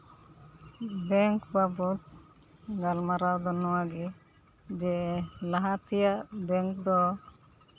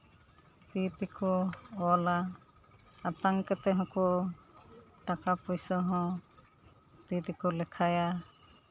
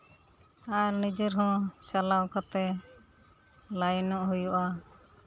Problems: constant background noise, background conversations at intervals